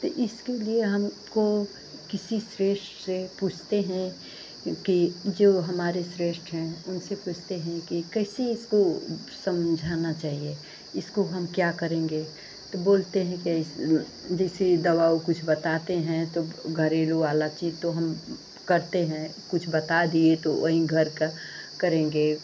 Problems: none marked